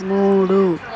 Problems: constant background noise